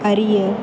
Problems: constant background noise